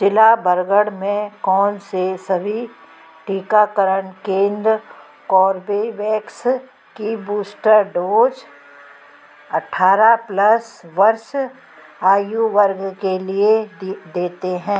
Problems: background sounds at intervals